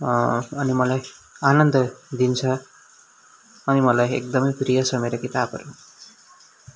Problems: background sounds at intervals